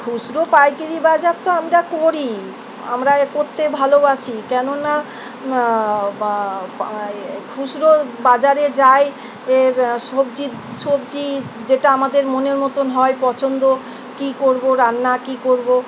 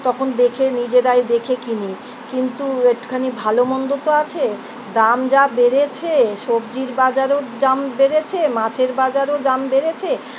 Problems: constant background noise